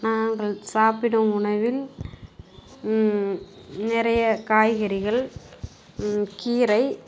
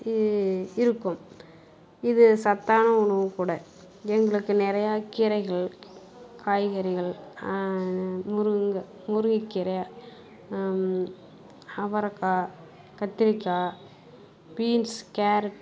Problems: none marked